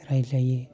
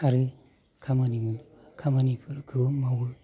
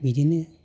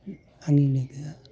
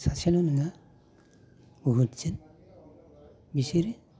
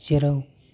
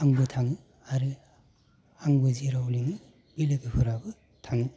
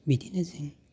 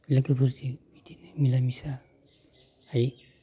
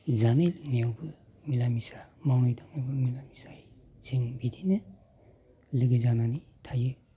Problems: constant background noise